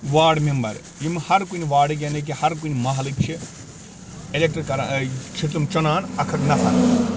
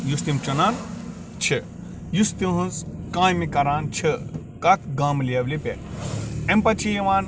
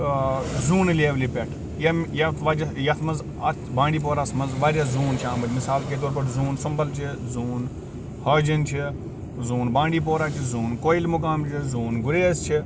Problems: background sounds at intervals, background conversations at intervals